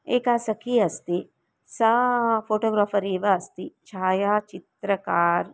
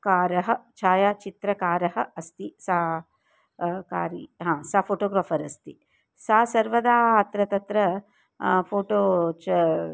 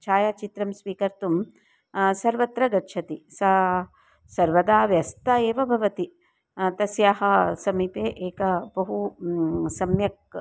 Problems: none marked